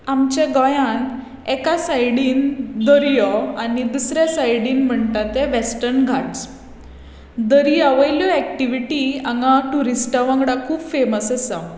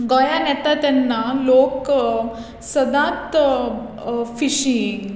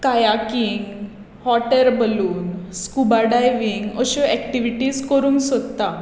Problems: constant background noise